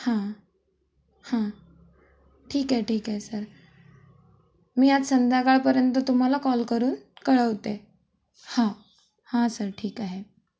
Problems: constant background noise, background conversations at intervals